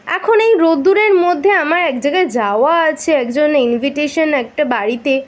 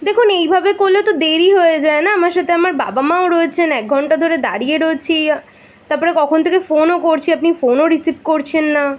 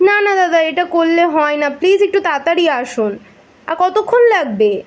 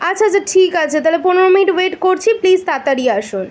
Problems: constant background noise